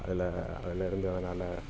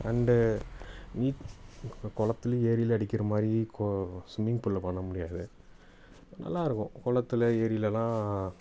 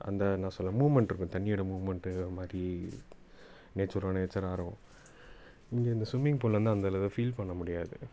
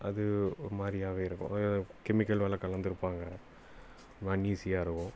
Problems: background conversations at intervals